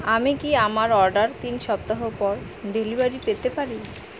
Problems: constant background noise